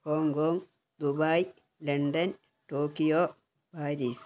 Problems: background sounds at intervals, low volume